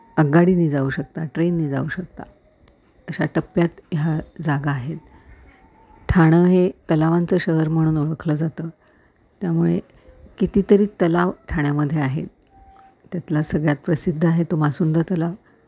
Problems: background sounds at intervals